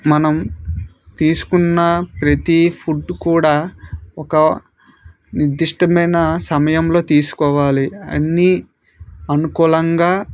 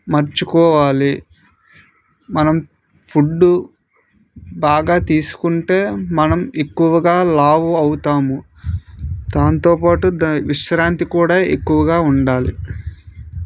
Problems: none marked